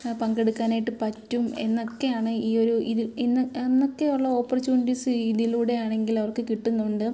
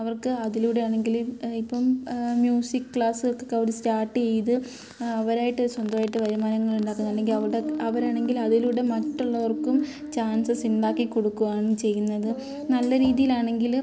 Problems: background sounds at intervals